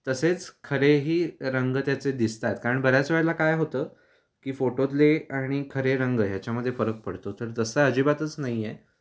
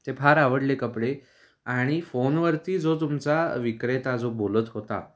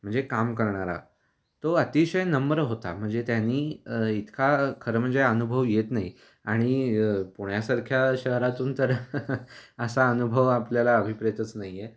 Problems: background sounds at intervals